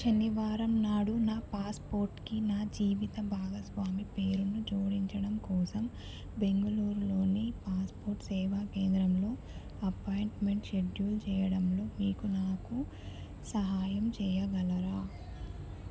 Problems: low volume